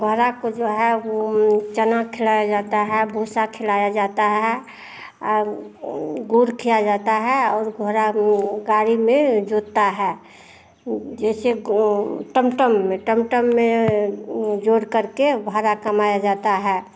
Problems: none marked